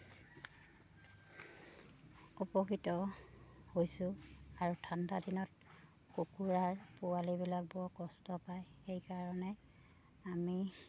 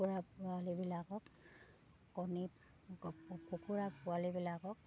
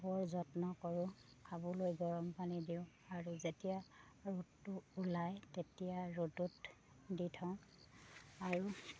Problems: none marked